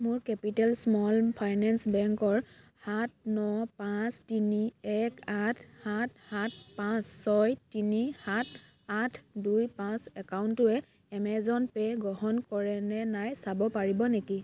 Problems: background sounds at intervals, background conversations at intervals